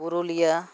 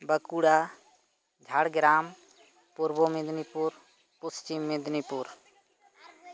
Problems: constant background noise, continuous background conversations